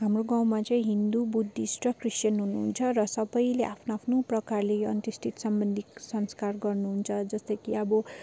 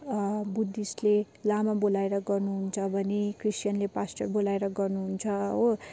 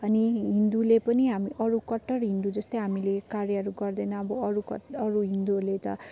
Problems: none marked